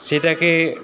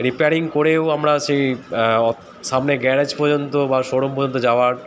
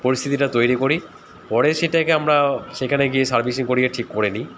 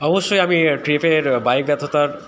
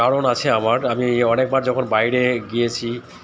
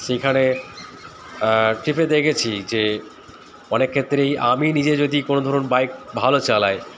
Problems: constant background noise